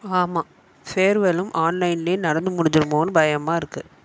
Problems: background sounds at intervals